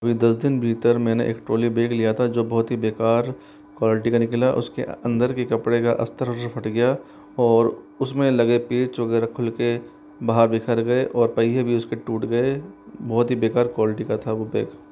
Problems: none marked